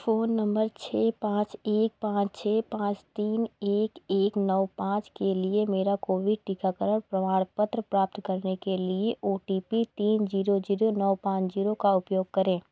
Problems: none marked